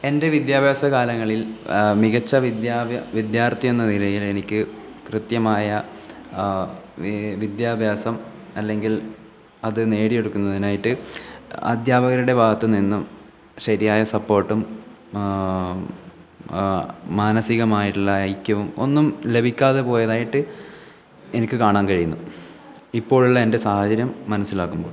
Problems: background sounds at intervals